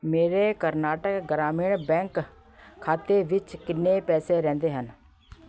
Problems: background sounds at intervals, background conversations at intervals